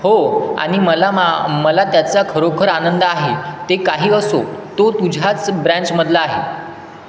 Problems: constant background noise